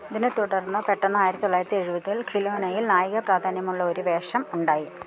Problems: background sounds at intervals